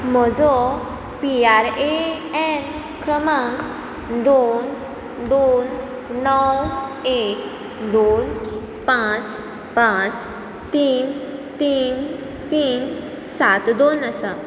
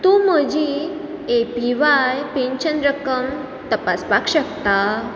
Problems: constant background noise